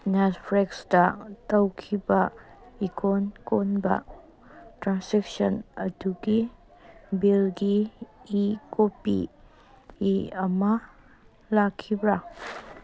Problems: background sounds at intervals, background conversations at intervals